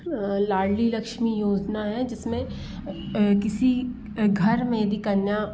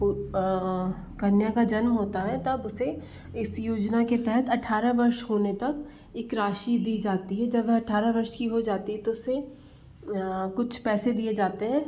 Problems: constant background noise